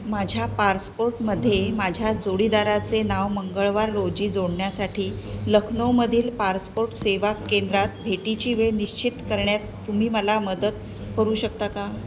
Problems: constant background noise, continuous background conversations